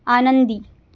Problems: constant background noise